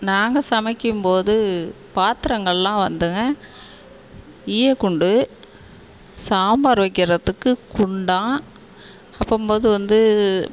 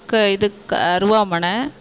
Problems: none marked